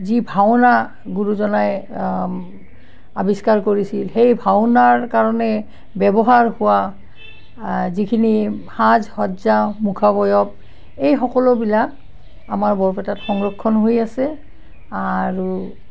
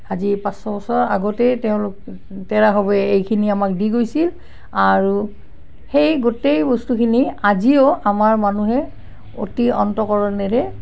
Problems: constant background noise